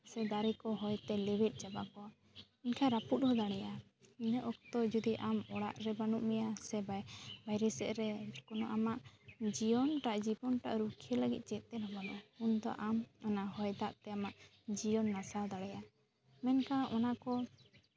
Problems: constant background noise